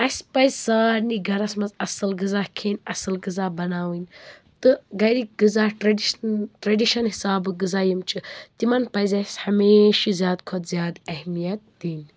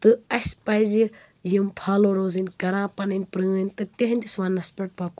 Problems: constant background noise